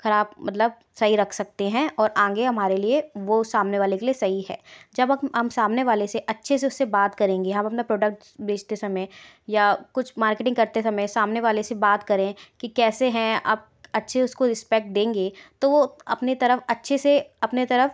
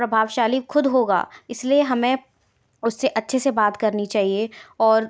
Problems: background sounds at intervals